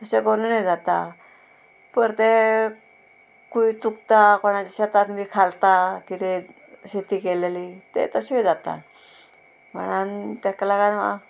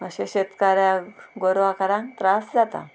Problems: constant background noise